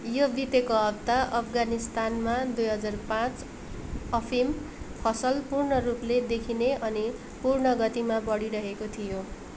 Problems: background sounds at intervals